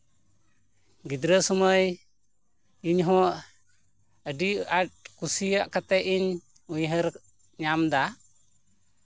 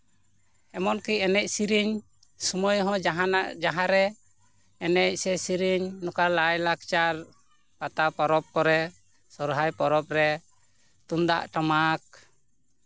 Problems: background sounds at intervals